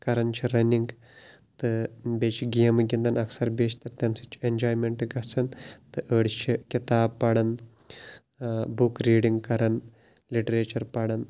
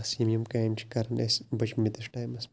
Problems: background sounds at intervals